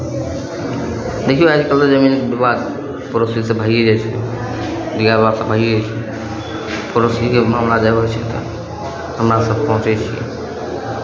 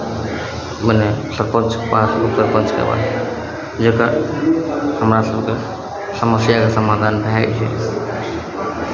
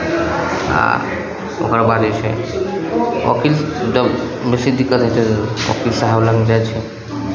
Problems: background sounds at intervals